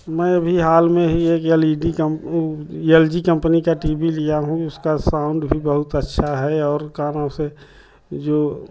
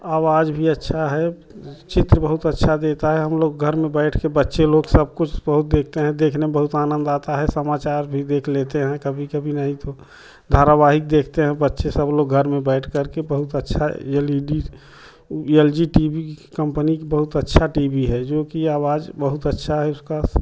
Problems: none marked